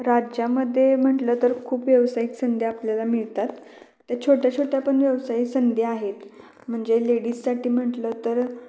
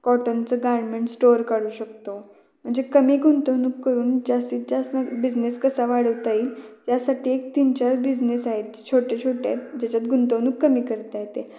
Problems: background sounds at intervals, echo